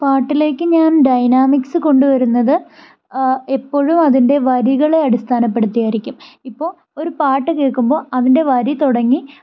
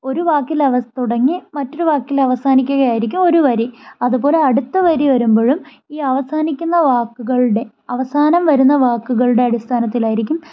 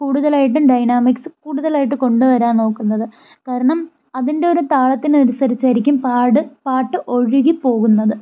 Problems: none marked